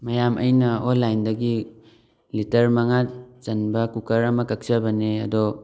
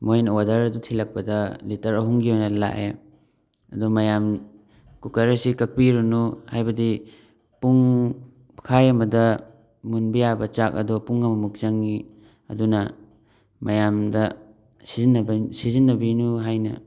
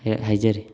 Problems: background conversations at intervals